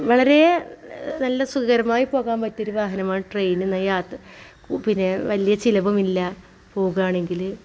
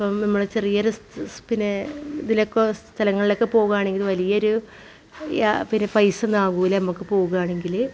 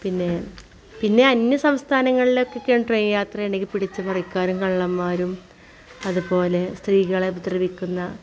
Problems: background sounds at intervals, background conversations at intervals